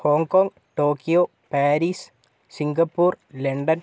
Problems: none marked